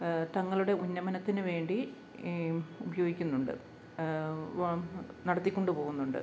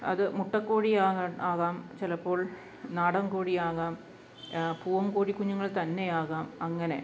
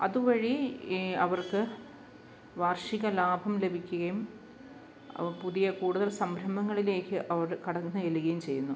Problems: low volume